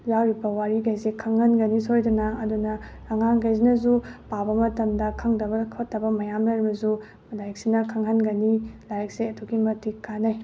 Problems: none marked